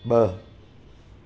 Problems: constant background noise